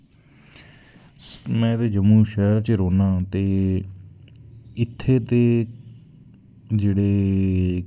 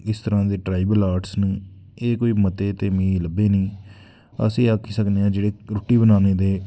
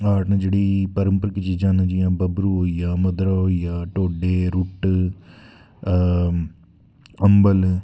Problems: background sounds at intervals